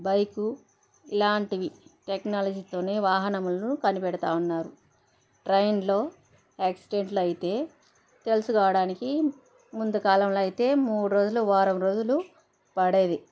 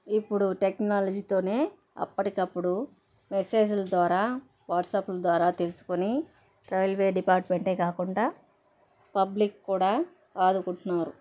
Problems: background sounds at intervals, background conversations at intervals